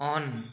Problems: background sounds at intervals, echo